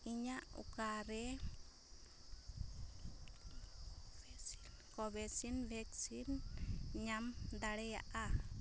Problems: low volume